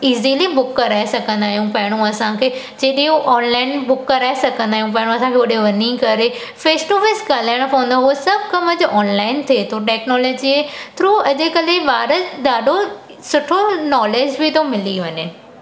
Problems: constant background noise